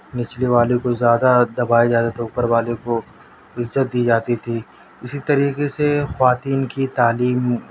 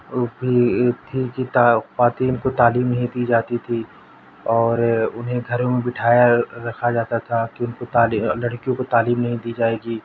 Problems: constant background noise